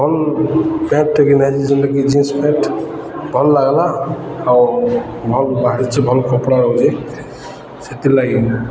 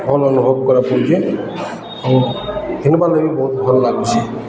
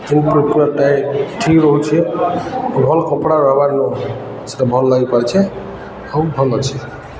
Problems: constant background noise, continuous background conversations